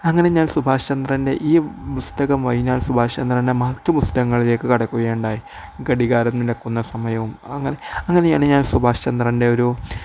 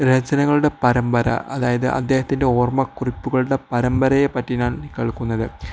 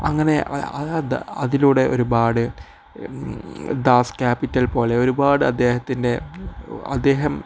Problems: none marked